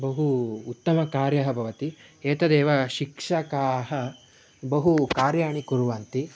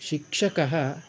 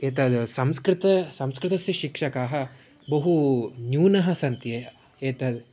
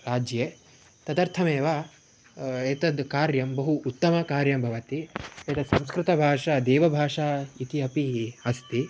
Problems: background sounds at intervals